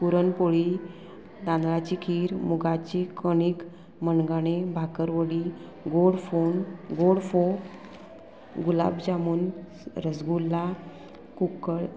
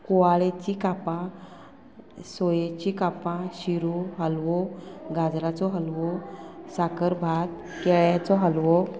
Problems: none marked